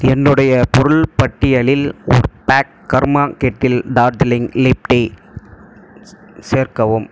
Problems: constant background noise